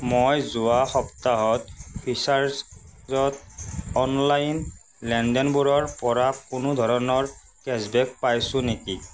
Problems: constant background noise